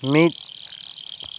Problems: none marked